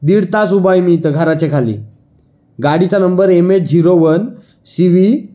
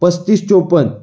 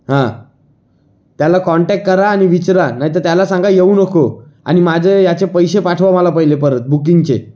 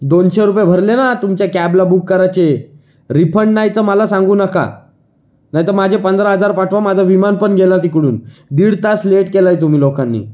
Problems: background sounds at intervals